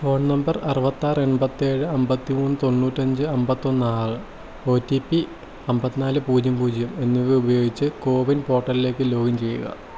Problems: constant background noise